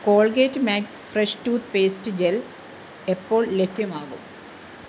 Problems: constant background noise